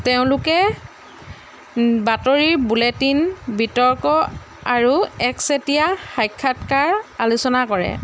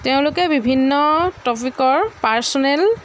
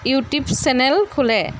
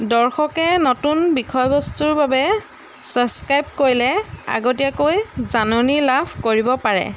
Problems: background sounds at intervals